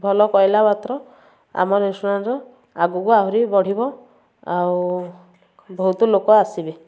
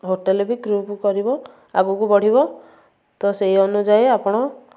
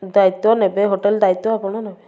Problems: background sounds at intervals, background conversations at intervals